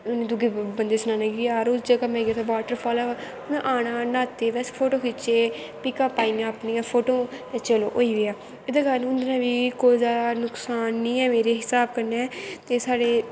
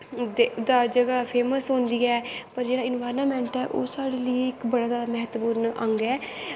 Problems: constant background noise